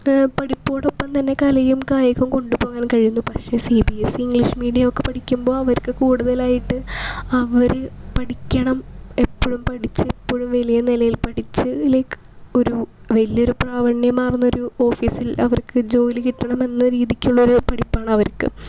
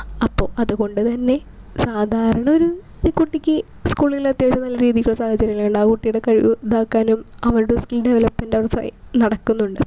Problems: none marked